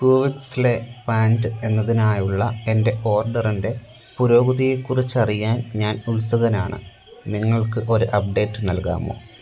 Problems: constant background noise